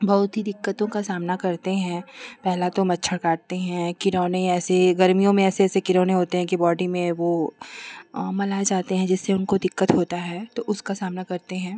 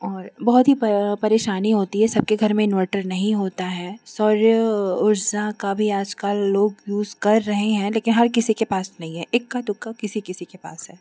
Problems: none marked